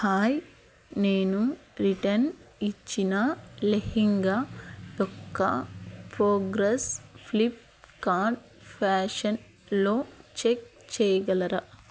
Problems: none marked